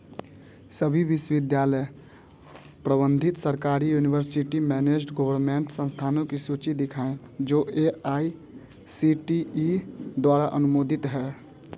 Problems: constant background noise